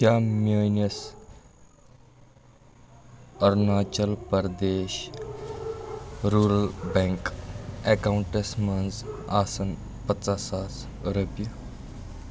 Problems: constant background noise